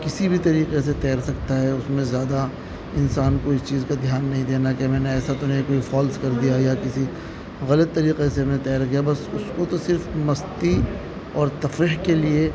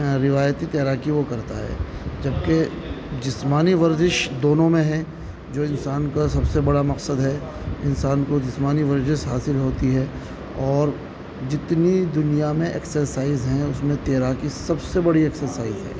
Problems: constant background noise